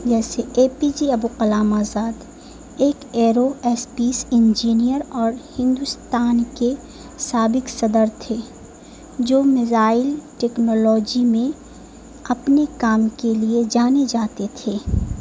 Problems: constant background noise